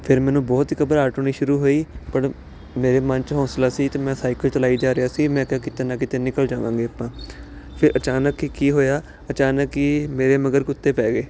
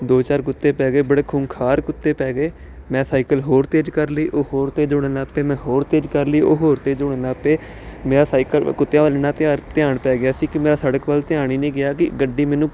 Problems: constant background noise